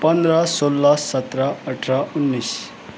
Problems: none marked